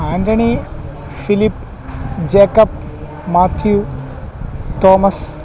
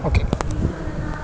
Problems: none marked